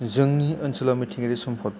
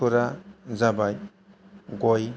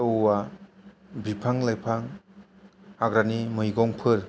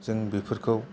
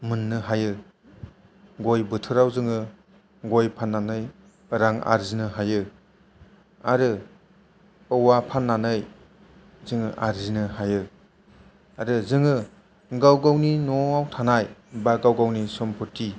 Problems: none marked